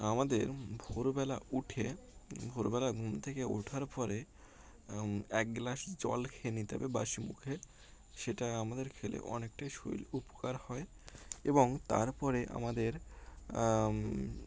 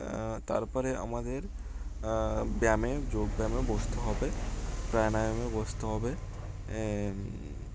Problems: constant background noise